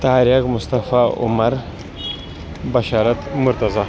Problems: constant background noise, background conversations at intervals